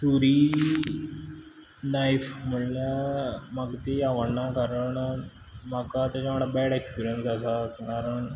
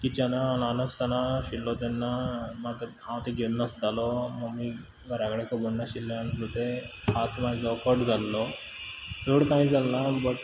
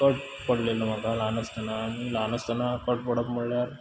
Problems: background sounds at intervals